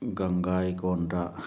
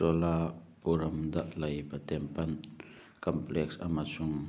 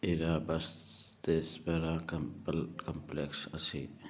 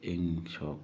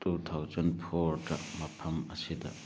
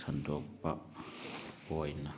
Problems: low volume